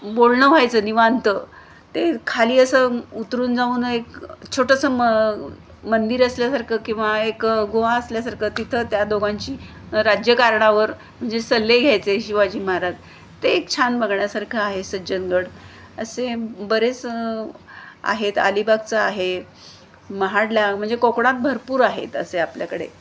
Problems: none marked